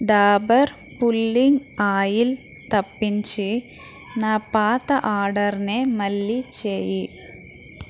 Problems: constant background noise, background conversations at intervals